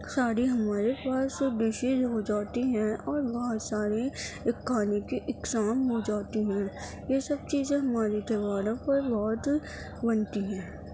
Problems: constant background noise